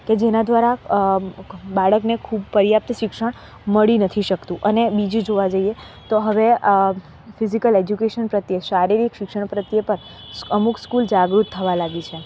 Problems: none marked